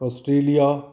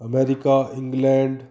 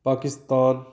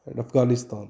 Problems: background sounds at intervals